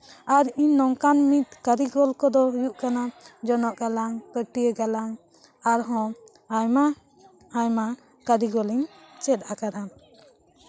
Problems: background sounds at intervals, continuous background conversations